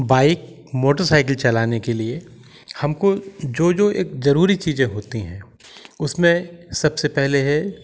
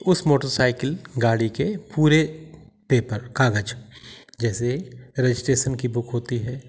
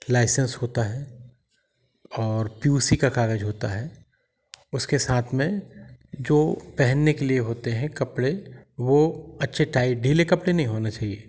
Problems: background sounds at intervals